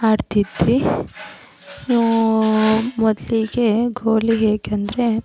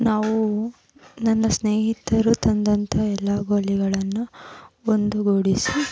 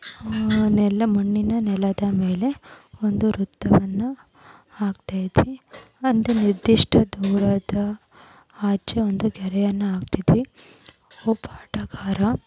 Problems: none marked